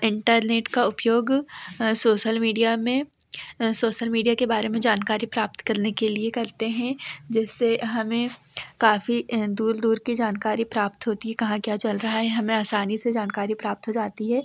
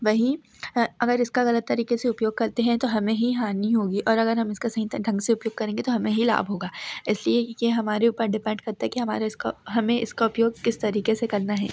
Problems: none marked